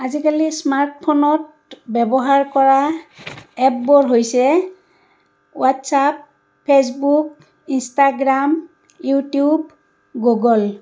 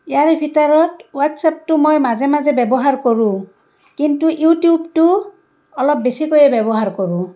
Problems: none marked